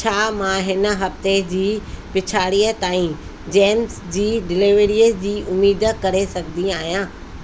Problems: constant background noise, echo